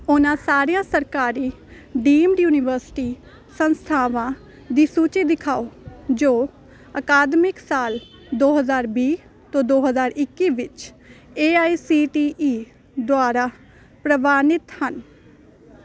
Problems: constant background noise